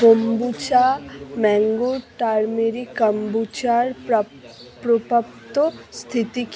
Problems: background conversations at intervals